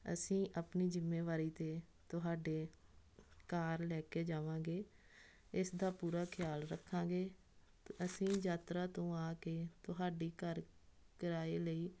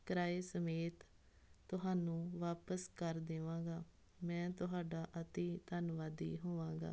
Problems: none marked